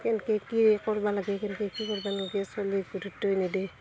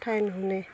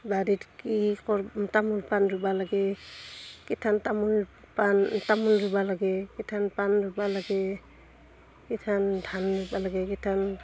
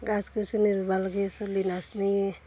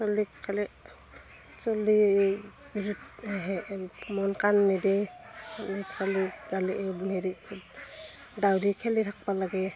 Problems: constant background noise, continuous background conversations